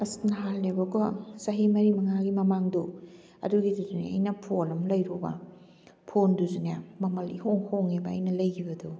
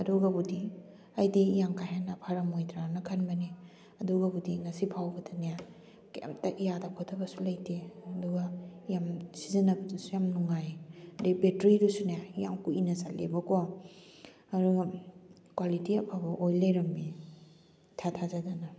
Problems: none marked